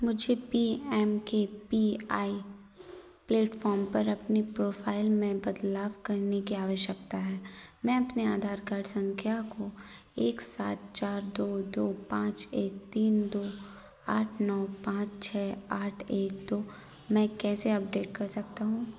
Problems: constant background noise